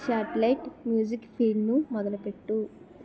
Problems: continuous background conversations